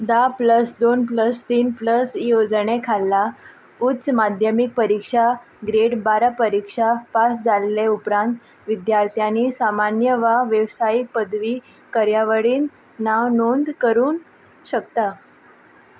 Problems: none marked